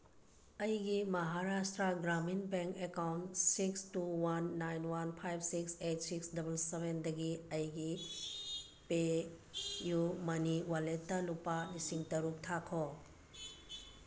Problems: background sounds at intervals